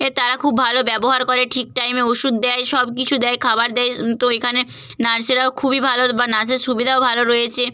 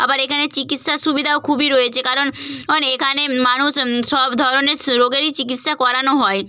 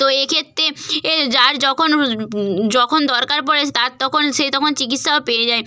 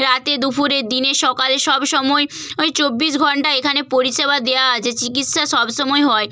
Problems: none marked